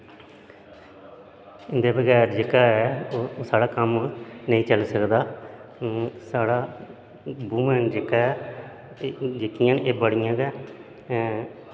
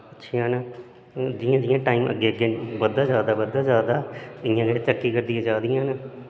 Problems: constant background noise, echo